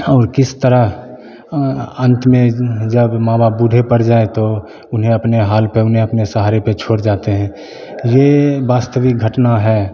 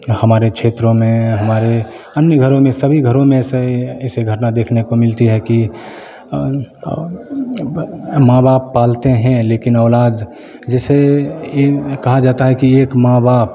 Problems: constant background noise, continuous background conversations